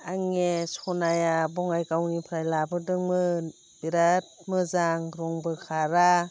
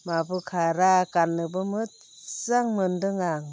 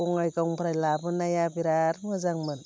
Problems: constant background noise